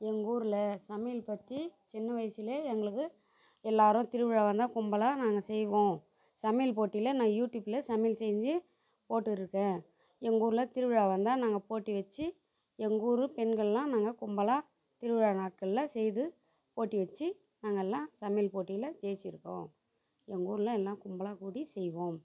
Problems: background sounds at intervals, background conversations at intervals